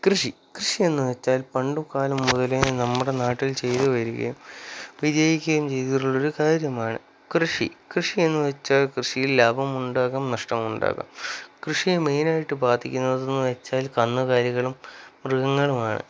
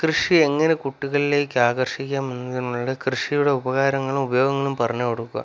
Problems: none marked